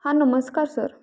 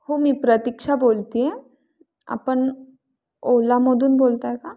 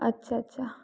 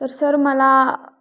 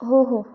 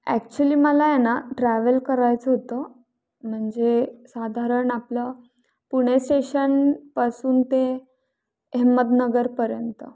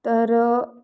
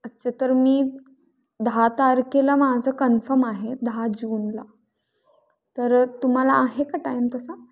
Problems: none marked